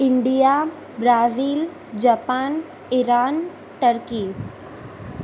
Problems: constant background noise